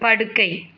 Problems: background conversations at intervals